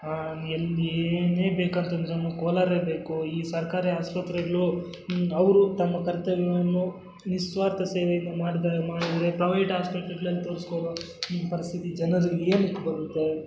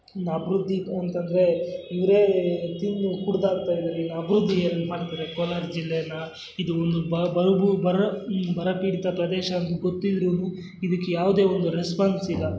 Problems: background sounds at intervals